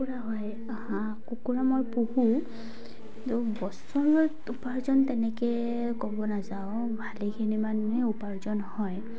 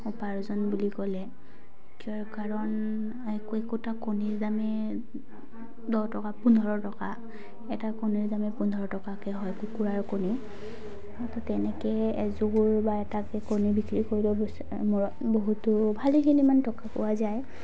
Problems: background sounds at intervals